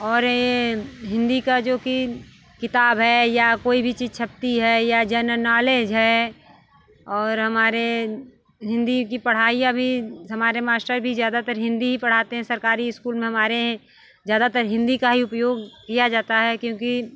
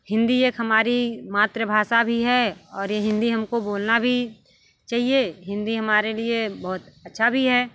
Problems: constant background noise, background conversations at intervals